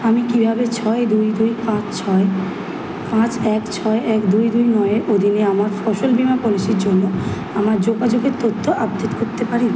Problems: constant background noise